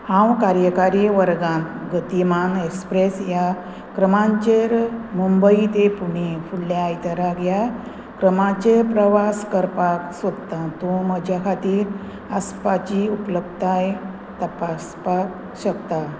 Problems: none marked